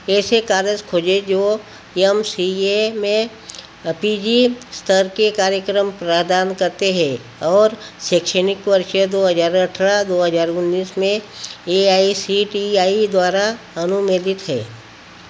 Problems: constant background noise